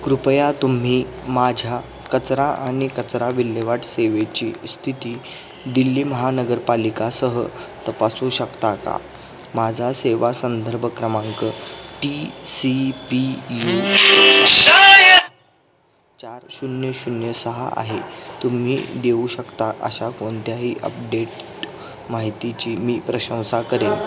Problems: continuous background conversations